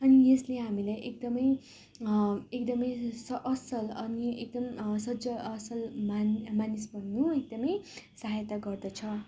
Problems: background sounds at intervals